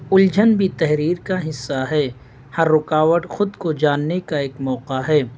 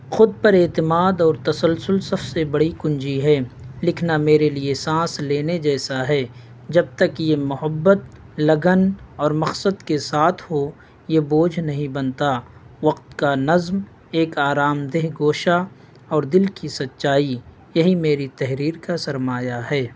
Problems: none marked